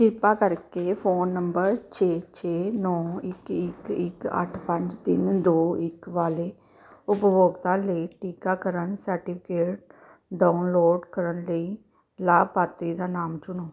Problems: background sounds at intervals